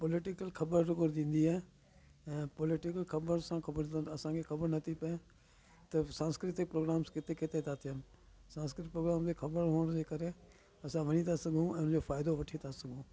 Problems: constant background noise, background conversations at intervals